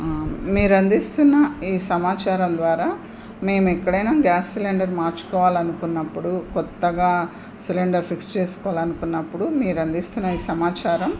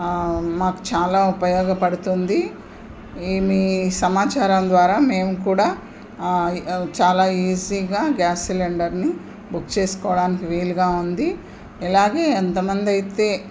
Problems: constant background noise